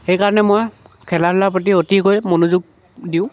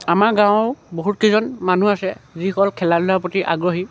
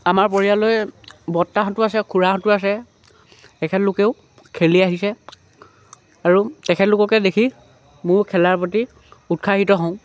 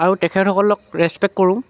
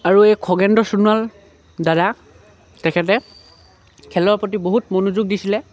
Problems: none marked